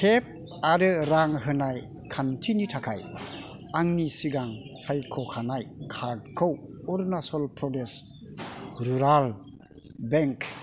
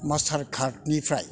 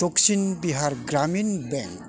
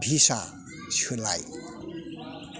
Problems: constant background noise